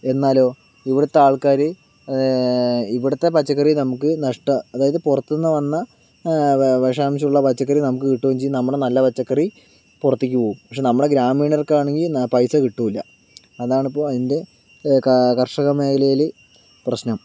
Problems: background sounds at intervals